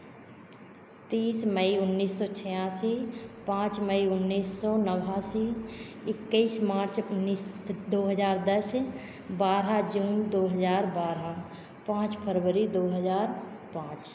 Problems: constant background noise